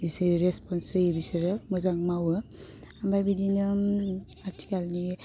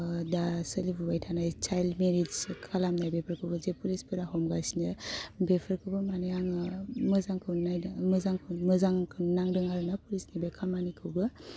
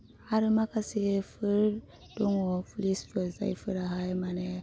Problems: constant background noise